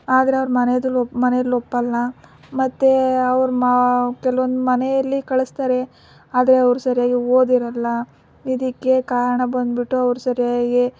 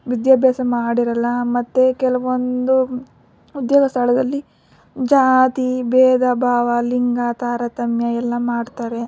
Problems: none marked